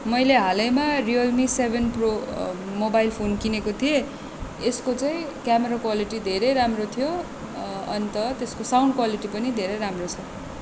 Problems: constant background noise